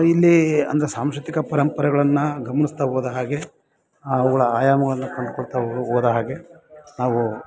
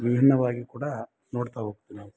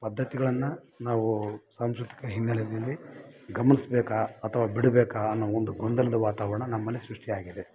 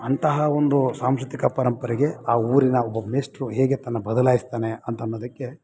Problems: none marked